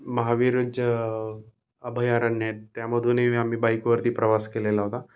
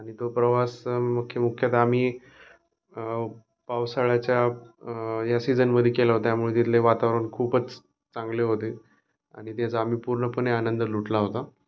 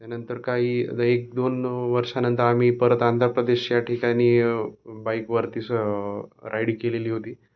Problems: none marked